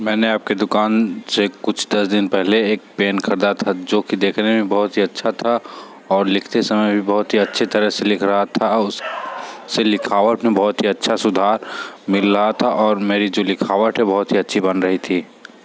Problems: background sounds at intervals